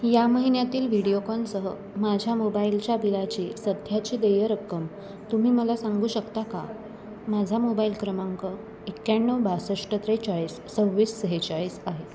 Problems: none marked